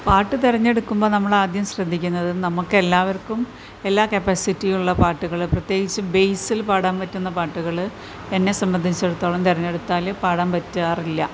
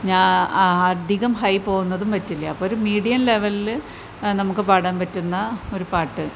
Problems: none marked